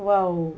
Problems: low volume